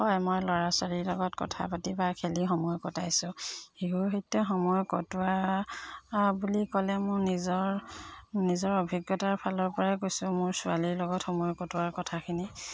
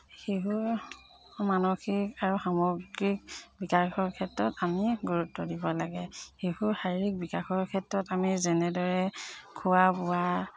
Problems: none marked